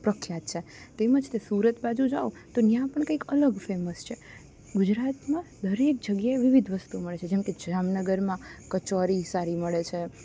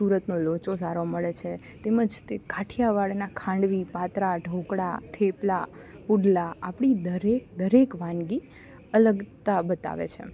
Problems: none marked